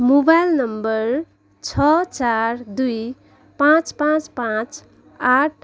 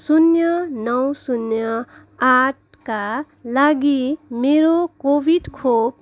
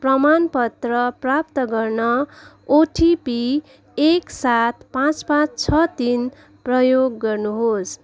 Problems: none marked